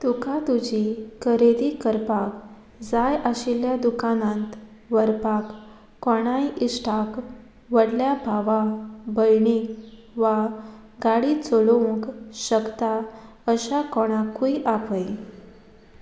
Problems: background sounds at intervals